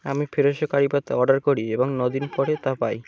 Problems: constant background noise